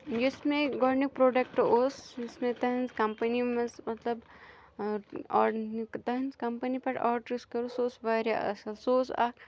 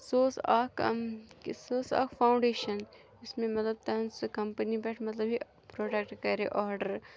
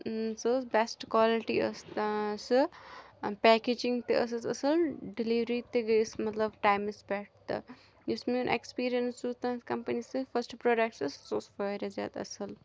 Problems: none marked